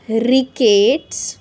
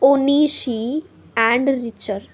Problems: constant background noise